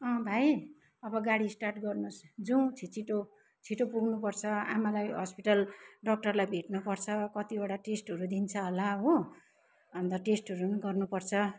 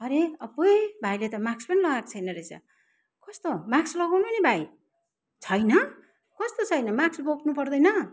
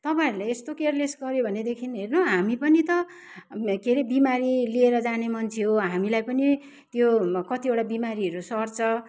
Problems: none marked